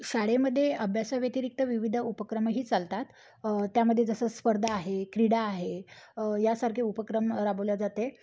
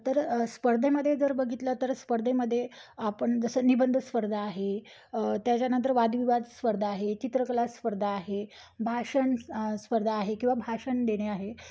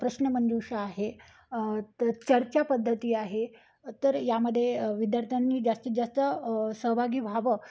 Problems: none marked